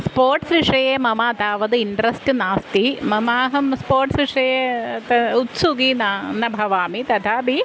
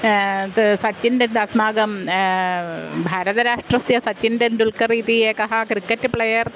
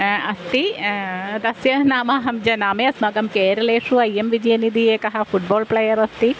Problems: constant background noise